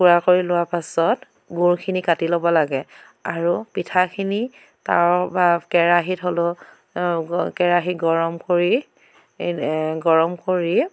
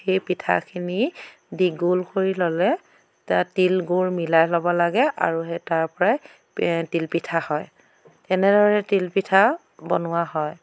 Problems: background sounds at intervals